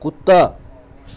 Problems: constant background noise